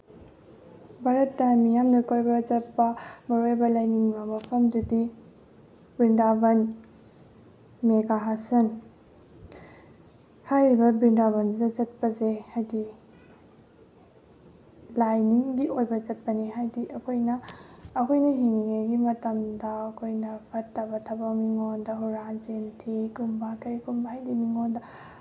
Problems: none marked